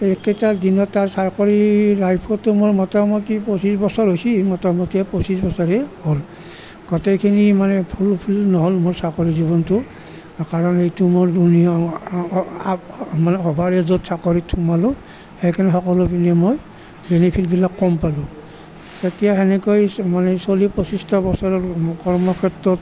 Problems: none marked